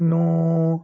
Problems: constant background noise